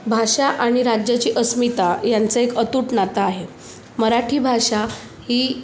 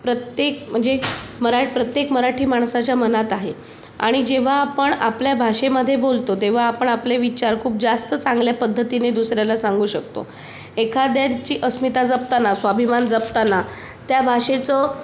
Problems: none marked